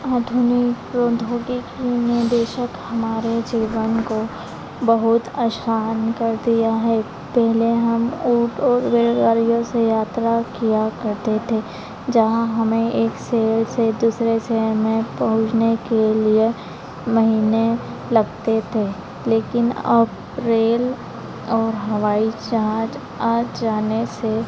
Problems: constant background noise, continuous background conversations